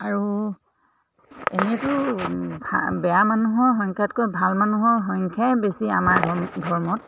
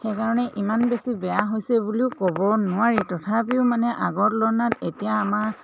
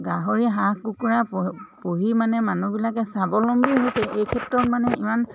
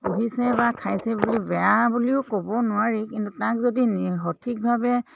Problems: constant background noise, background conversations at intervals